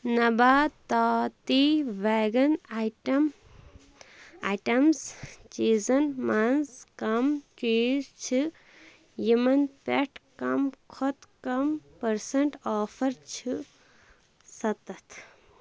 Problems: constant background noise